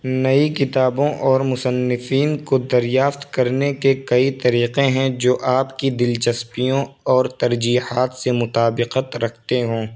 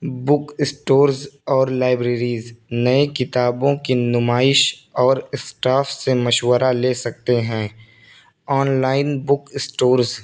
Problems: constant background noise